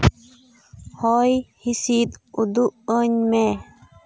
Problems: none marked